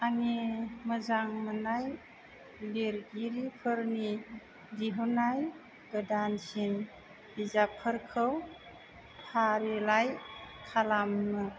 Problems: none marked